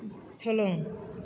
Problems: constant background noise